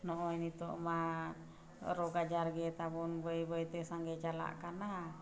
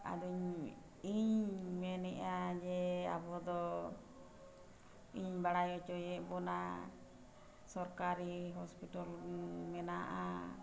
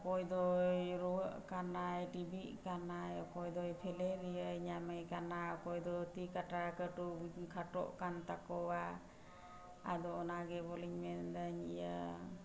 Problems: none marked